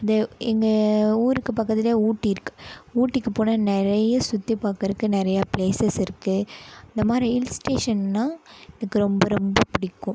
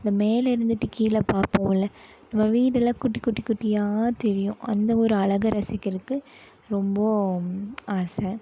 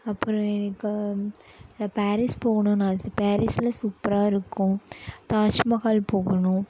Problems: none marked